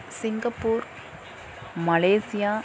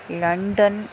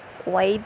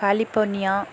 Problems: background sounds at intervals